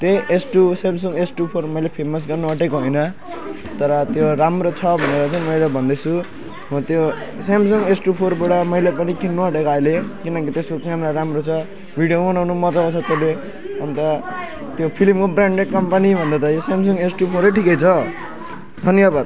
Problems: constant background noise, continuous background conversations